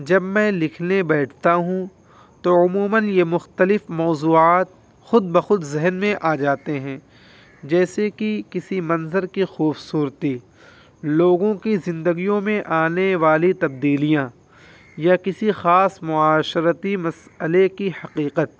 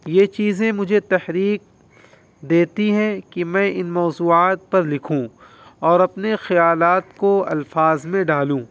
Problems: constant background noise